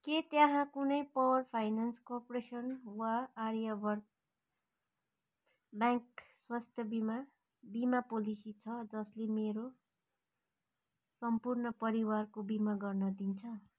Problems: none marked